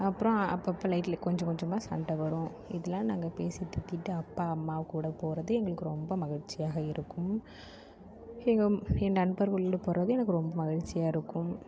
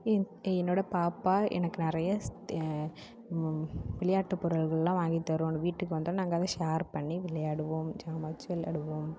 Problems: background sounds at intervals